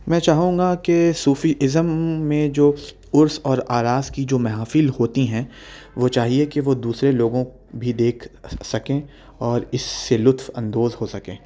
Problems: none marked